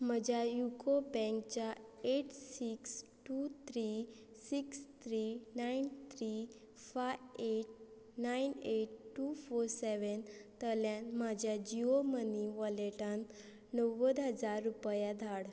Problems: none marked